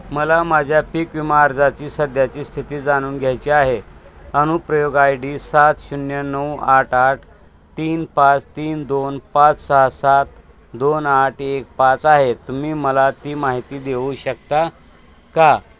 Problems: constant background noise, background conversations at intervals